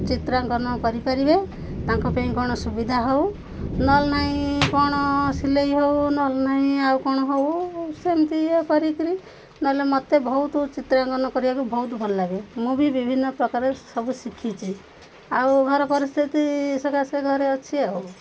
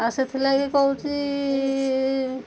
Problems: constant background noise, background conversations at intervals